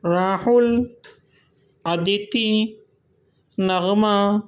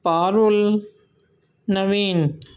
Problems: none marked